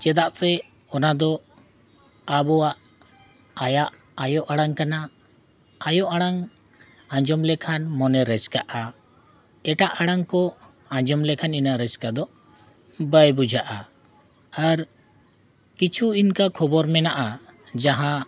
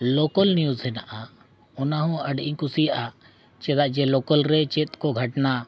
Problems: background sounds at intervals, continuous background conversations